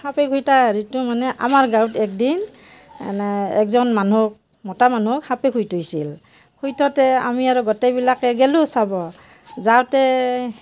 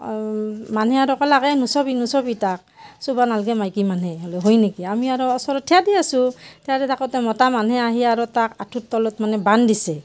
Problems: constant background noise